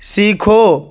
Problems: constant background noise